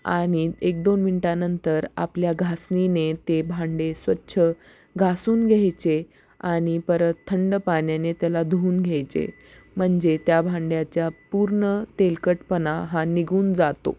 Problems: none marked